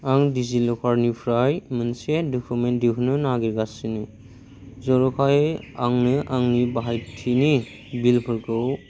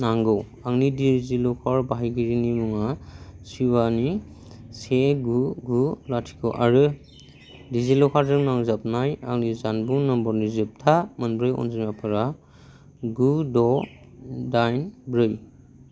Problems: none marked